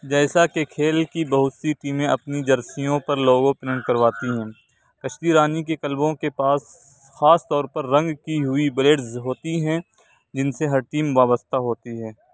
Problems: none marked